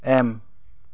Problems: low volume